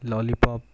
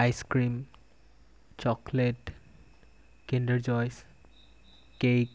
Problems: constant background noise